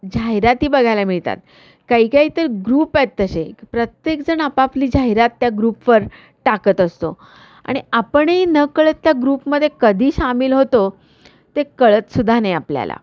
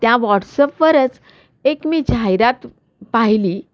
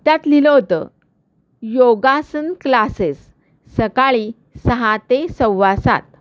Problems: none marked